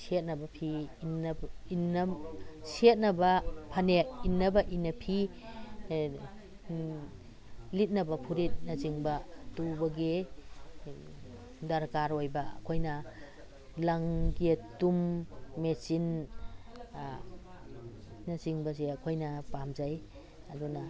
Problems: background sounds at intervals